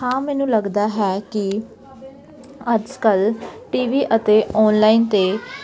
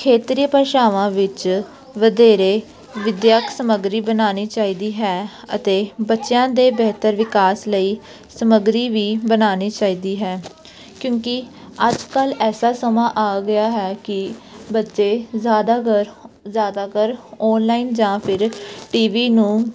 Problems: none marked